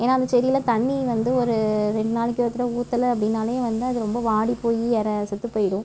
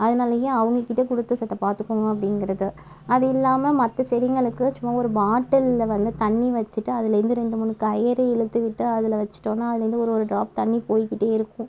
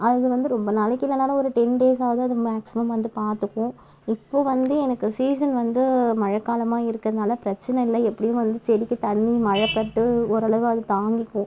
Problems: background sounds at intervals